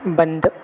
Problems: constant background noise, echo